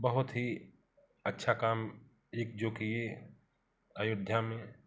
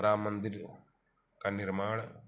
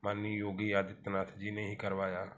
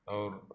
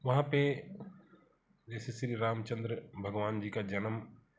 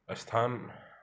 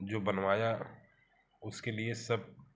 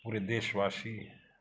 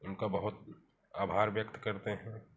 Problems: none marked